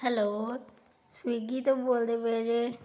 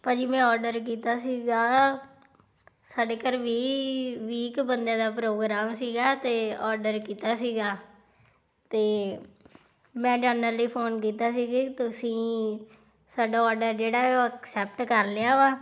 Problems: background sounds at intervals